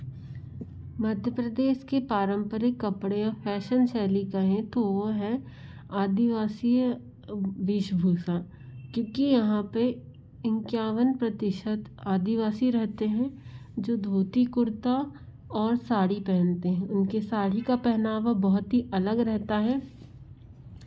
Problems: none marked